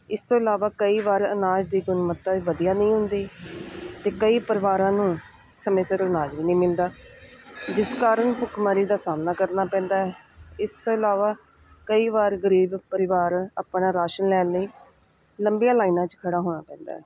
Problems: none marked